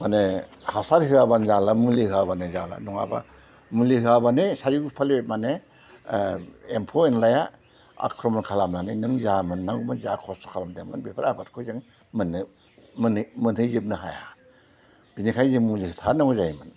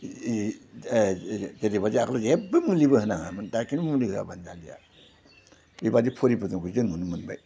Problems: low volume